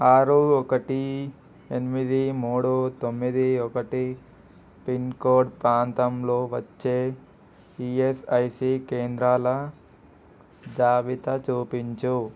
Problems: constant background noise